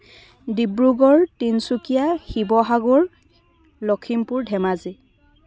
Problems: background conversations at intervals